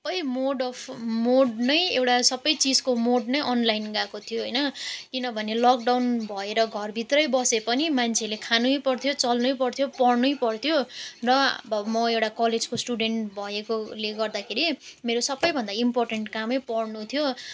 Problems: none marked